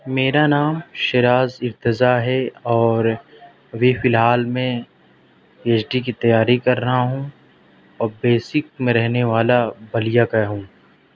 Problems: none marked